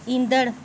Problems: constant background noise